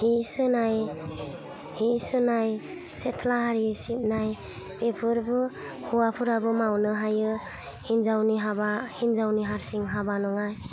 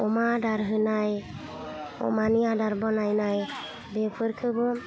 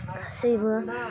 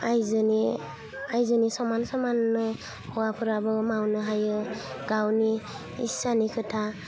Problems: constant background noise